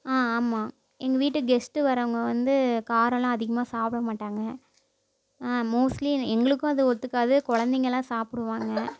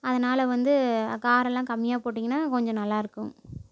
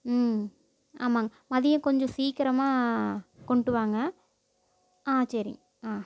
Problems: none marked